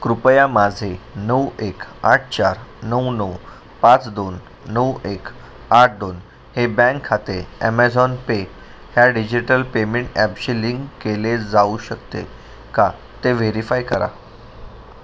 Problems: constant background noise